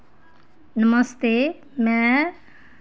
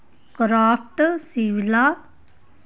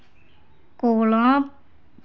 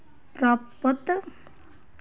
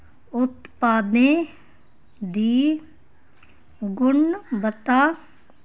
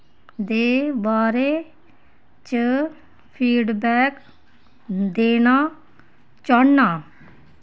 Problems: none marked